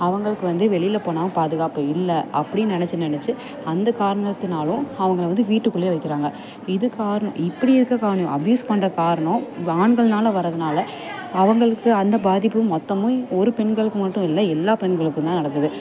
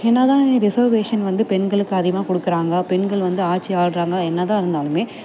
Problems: constant background noise, background conversations at intervals